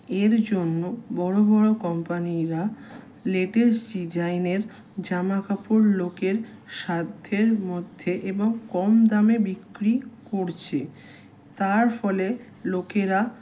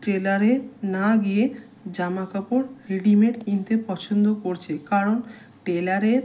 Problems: constant background noise